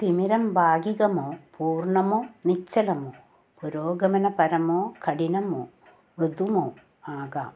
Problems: constant background noise